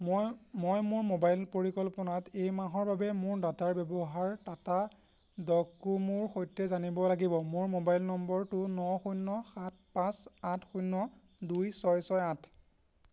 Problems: constant background noise